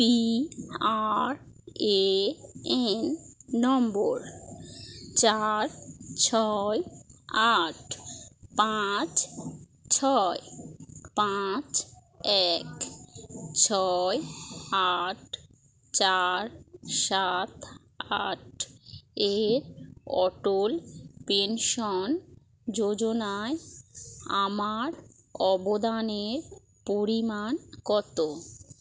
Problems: none marked